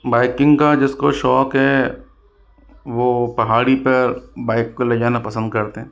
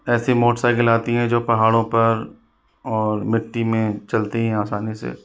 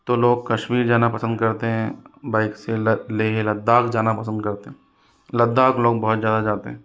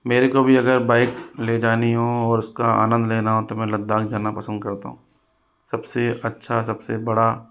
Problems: constant background noise